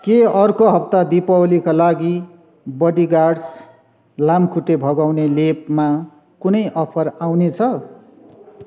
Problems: background sounds at intervals